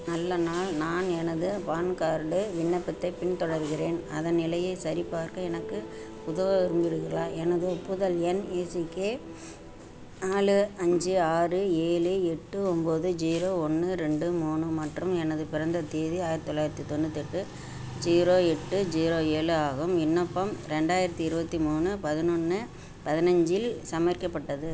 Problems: constant background noise